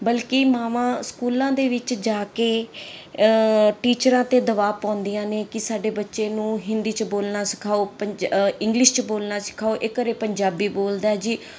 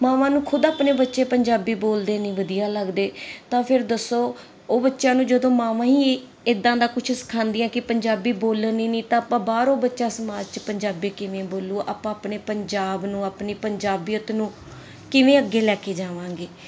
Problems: none marked